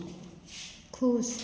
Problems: constant background noise